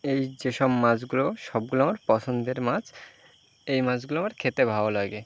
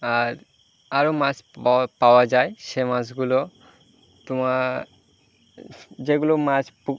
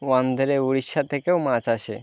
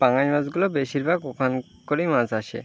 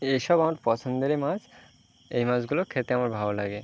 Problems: constant background noise, continuous background conversations